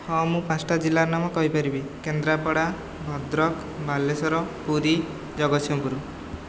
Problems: constant background noise, background conversations at intervals